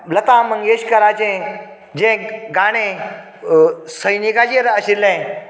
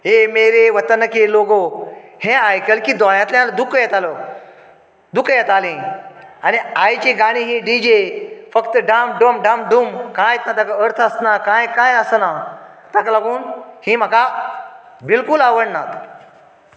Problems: background sounds at intervals, echo